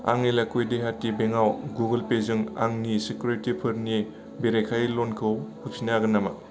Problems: low volume